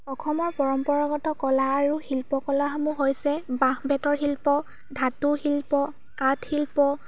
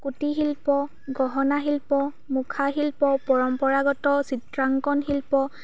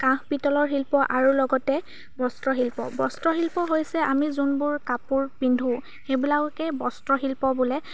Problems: constant background noise